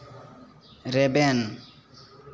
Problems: none marked